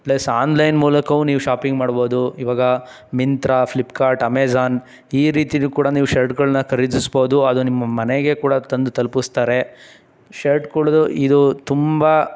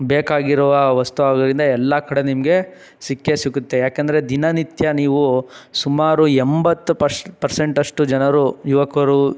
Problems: none marked